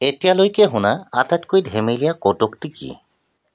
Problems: background sounds at intervals